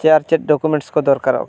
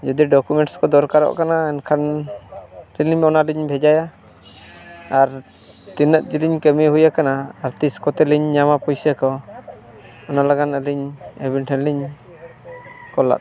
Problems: background conversations at intervals